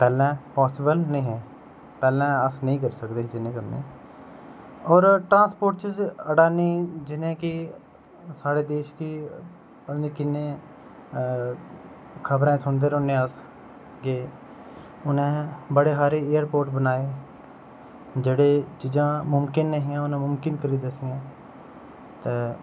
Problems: constant background noise